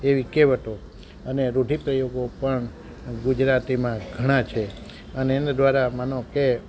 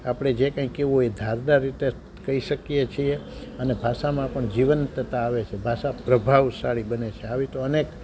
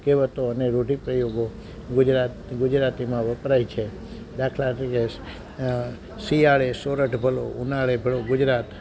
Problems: constant background noise